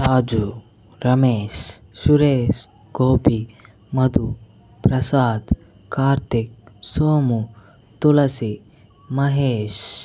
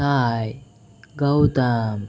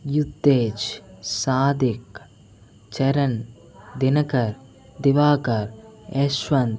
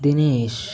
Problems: continuous background conversations